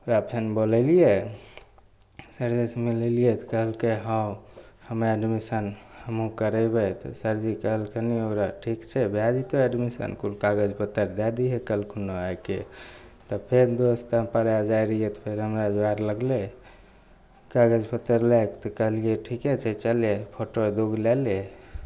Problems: none marked